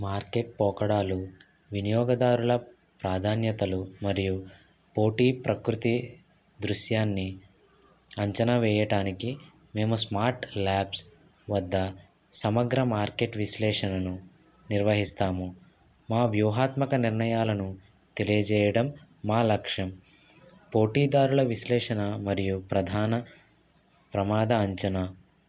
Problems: constant background noise